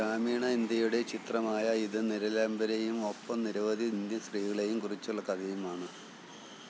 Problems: background sounds at intervals, low volume